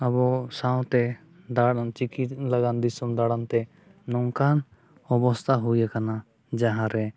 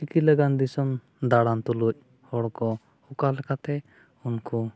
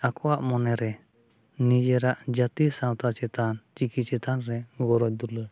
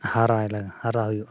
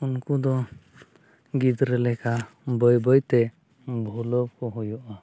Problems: none marked